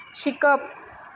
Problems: none marked